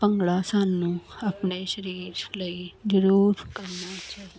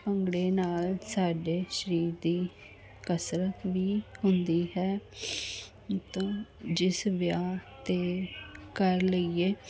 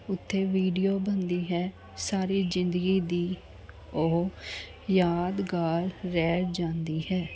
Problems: constant background noise, background conversations at intervals